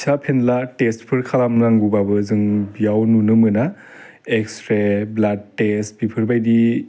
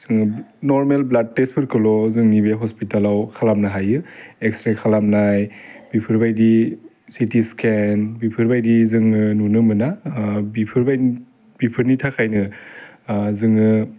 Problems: constant background noise